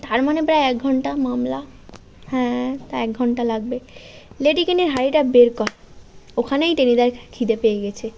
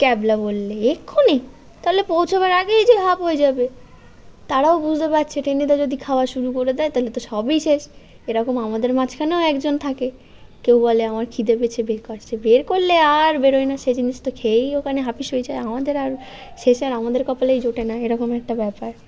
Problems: background sounds at intervals